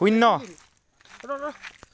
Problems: constant background noise